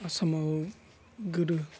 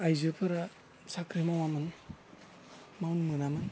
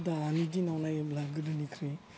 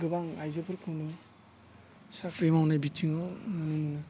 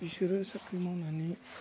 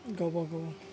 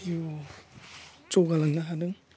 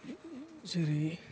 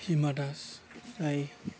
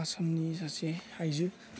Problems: low volume